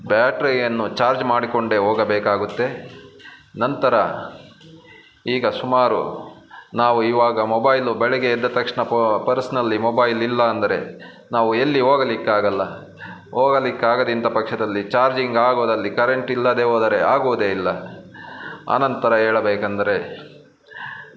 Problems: none marked